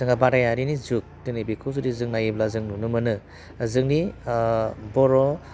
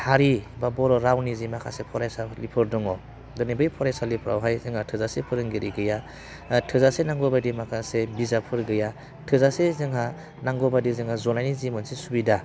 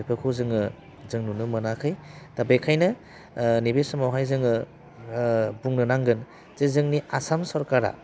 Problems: constant background noise